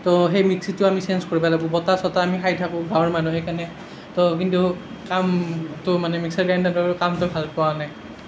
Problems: none marked